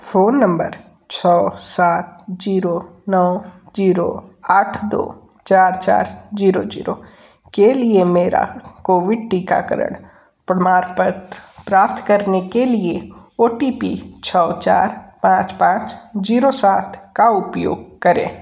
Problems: background sounds at intervals